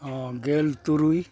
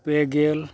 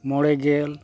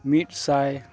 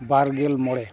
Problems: none marked